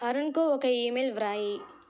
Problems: background sounds at intervals